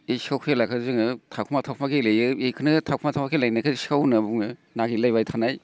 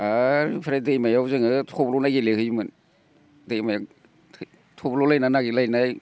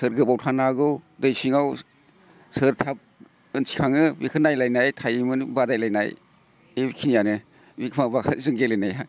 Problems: none marked